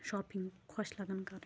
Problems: constant background noise